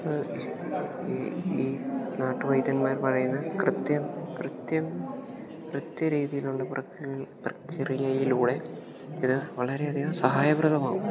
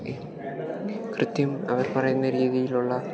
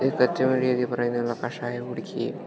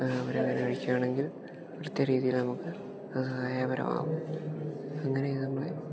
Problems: background sounds at intervals, low volume